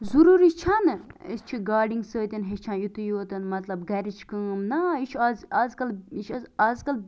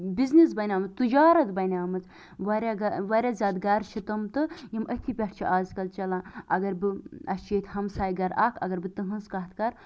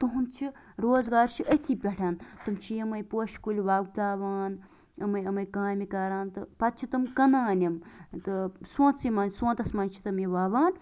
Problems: none marked